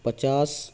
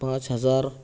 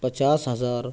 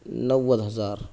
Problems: none marked